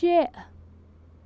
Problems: none marked